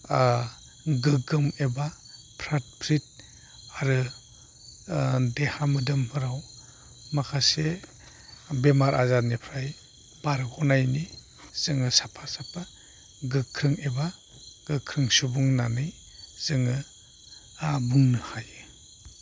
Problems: none marked